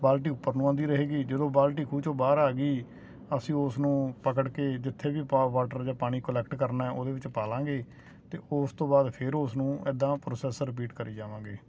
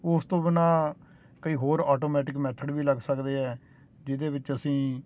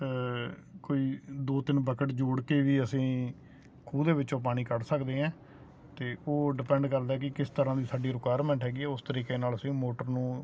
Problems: constant background noise